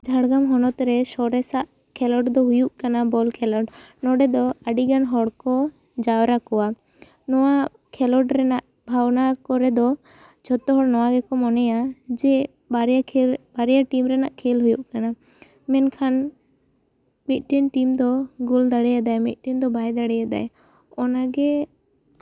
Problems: background sounds at intervals